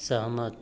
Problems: none marked